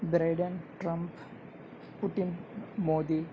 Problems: low volume